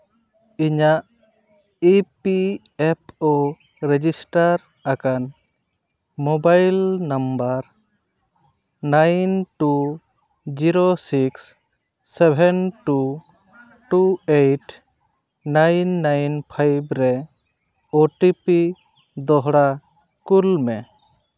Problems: none marked